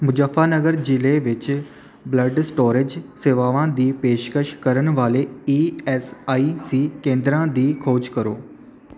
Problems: none marked